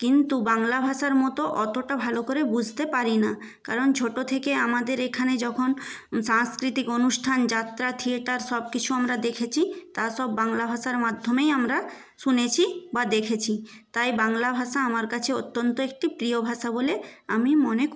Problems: background sounds at intervals